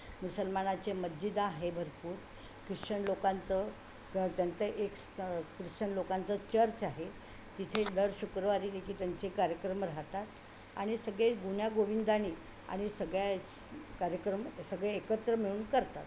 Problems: constant background noise